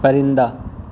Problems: constant background noise